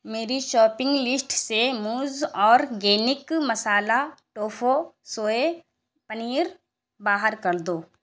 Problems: none marked